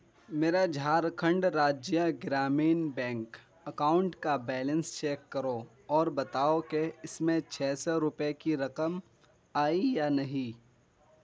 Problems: none marked